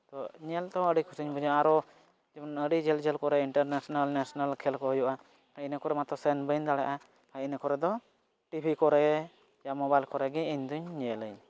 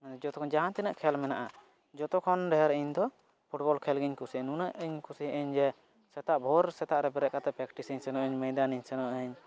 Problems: none marked